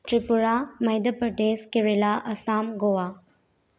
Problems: low volume